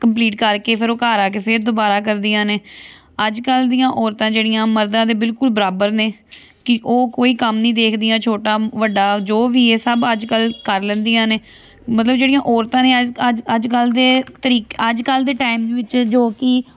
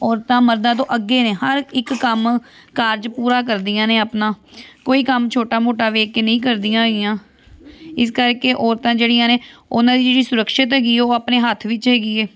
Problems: none marked